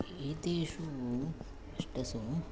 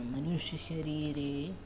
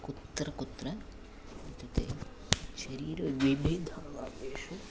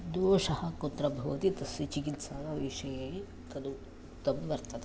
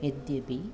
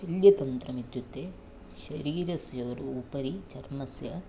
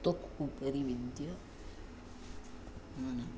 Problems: background sounds at intervals